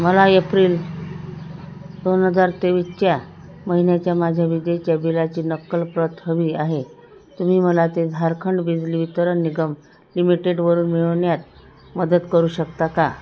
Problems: none marked